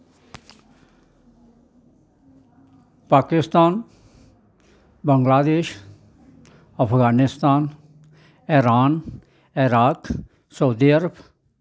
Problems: background sounds at intervals